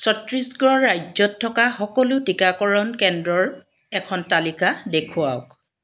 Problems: none marked